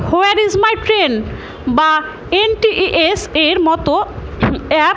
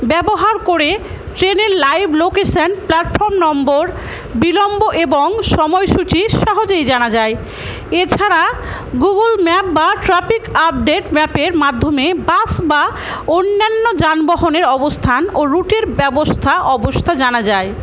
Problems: constant background noise